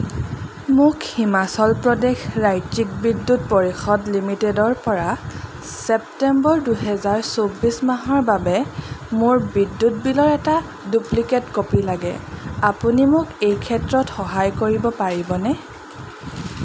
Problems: none marked